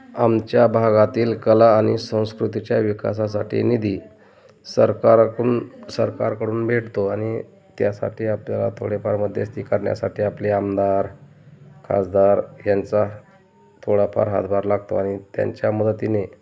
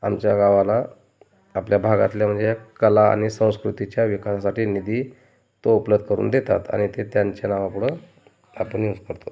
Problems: constant background noise, continuous background conversations